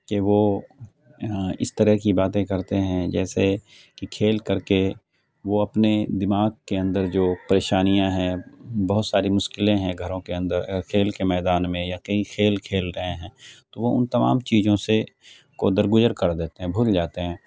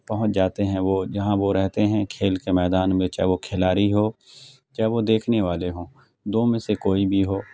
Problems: none marked